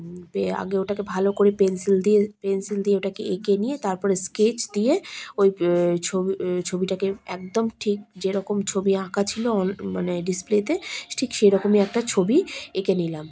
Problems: constant background noise, background conversations at intervals